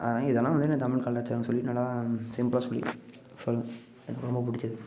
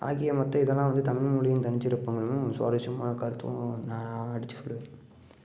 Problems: background sounds at intervals